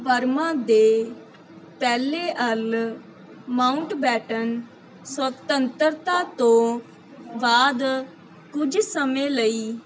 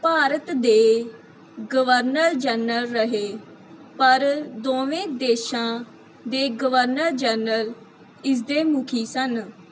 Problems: none marked